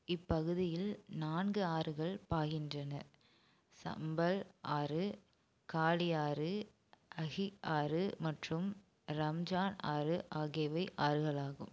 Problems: none marked